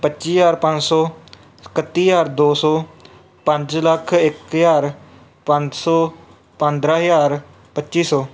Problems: background sounds at intervals